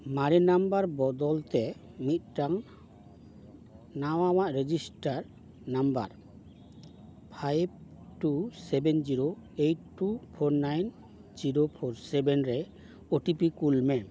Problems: none marked